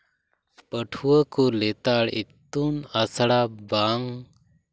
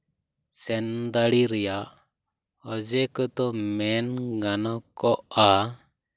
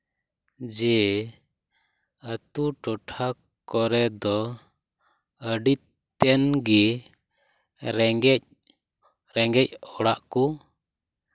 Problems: none marked